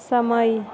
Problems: background conversations at intervals